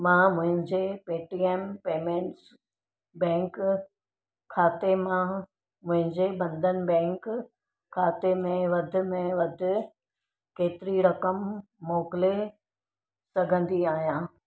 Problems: none marked